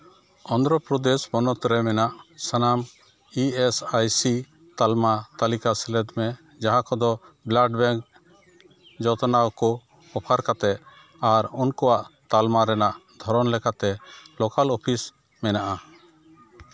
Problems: background sounds at intervals, background conversations at intervals